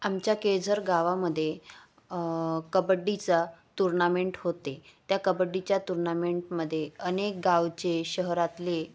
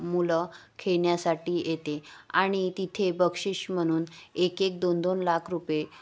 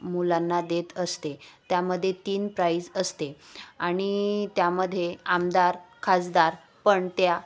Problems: none marked